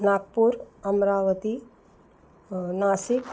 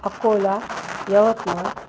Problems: none marked